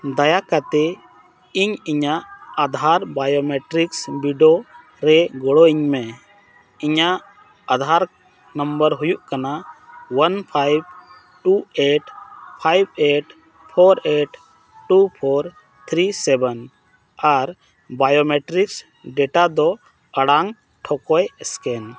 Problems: constant background noise